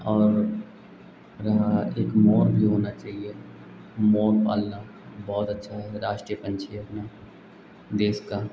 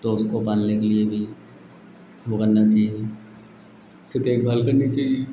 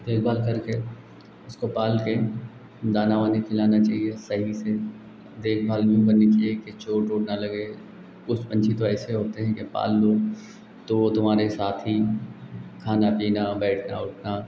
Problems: none marked